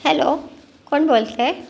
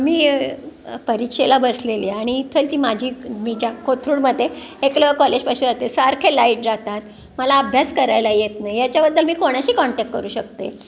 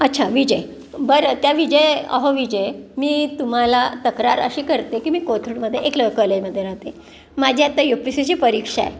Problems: constant background noise, background conversations at intervals